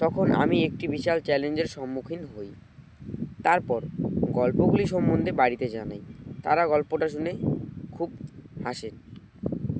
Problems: constant background noise